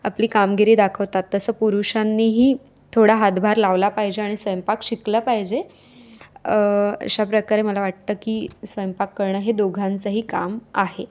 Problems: constant background noise, continuous background conversations